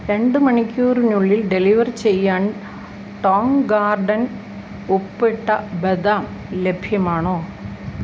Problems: constant background noise